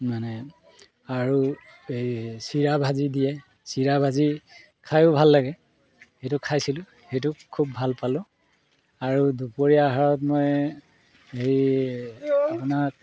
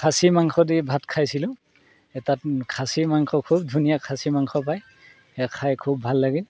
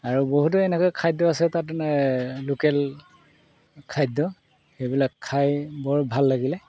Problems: background sounds at intervals